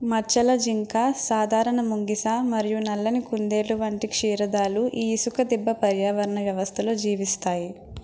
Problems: constant background noise